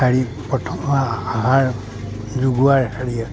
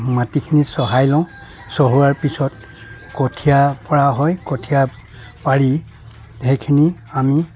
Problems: background sounds at intervals